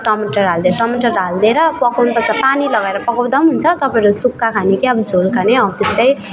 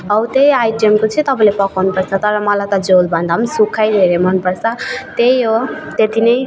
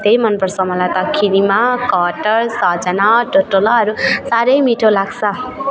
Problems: continuous background conversations